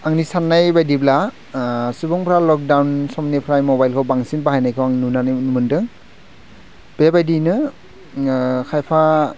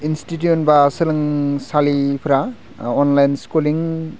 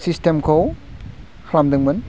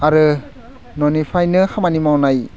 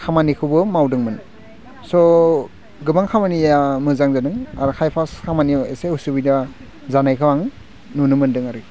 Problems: none marked